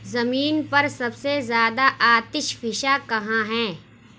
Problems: none marked